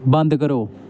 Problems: none marked